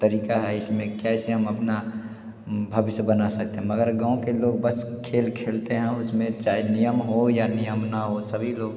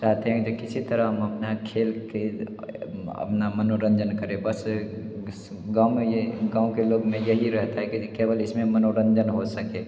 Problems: background sounds at intervals, background conversations at intervals, echo